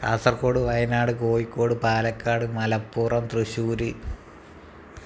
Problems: none marked